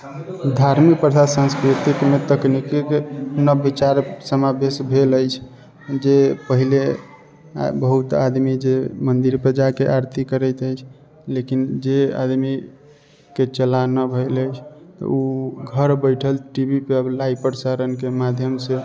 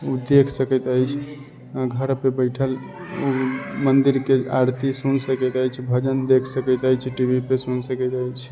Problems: constant background noise